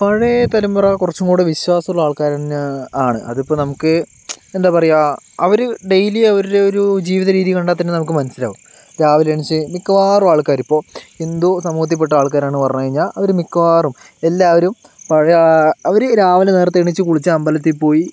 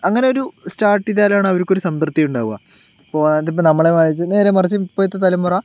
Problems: constant background noise